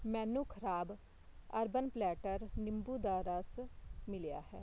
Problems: constant background noise